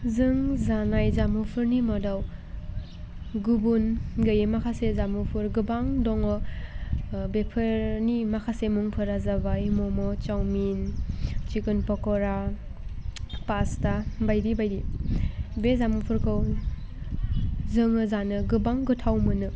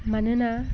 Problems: none marked